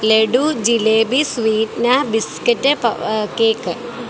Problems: constant background noise